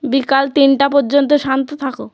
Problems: background sounds at intervals